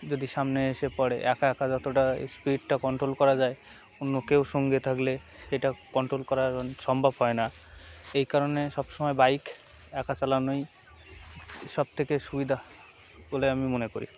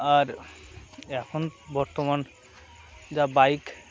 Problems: none marked